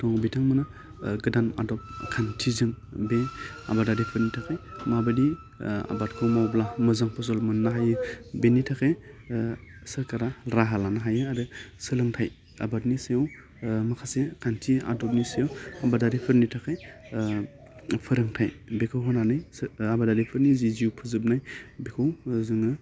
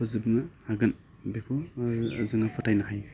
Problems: low volume